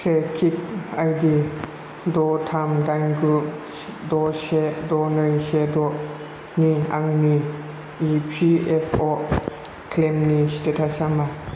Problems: none marked